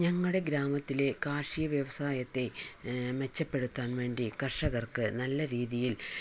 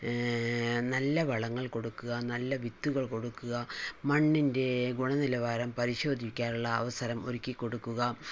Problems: low volume